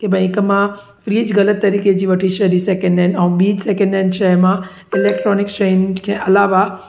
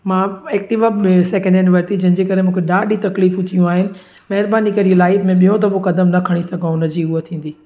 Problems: background sounds at intervals, echo